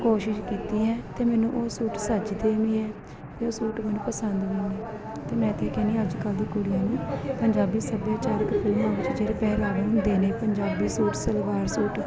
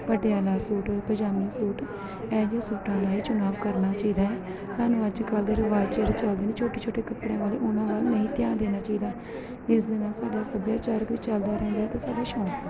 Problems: continuous background conversations